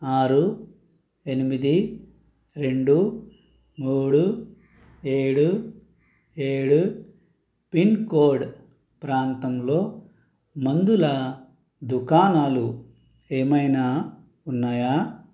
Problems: none marked